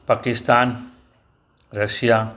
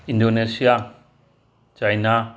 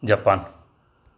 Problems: none marked